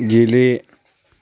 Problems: constant background noise